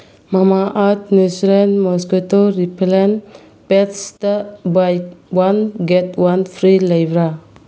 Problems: none marked